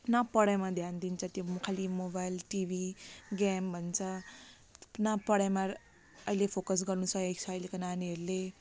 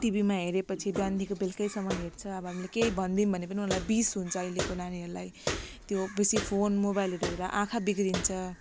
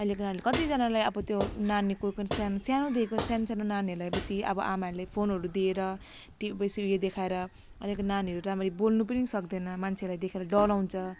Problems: constant background noise